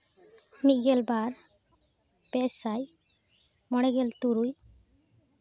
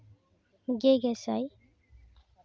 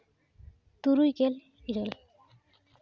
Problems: background sounds at intervals, background conversations at intervals